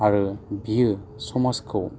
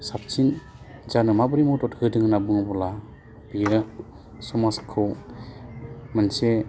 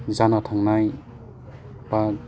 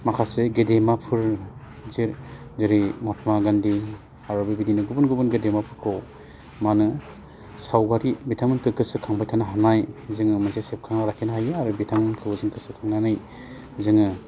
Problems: low volume